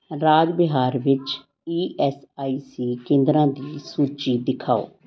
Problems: background conversations at intervals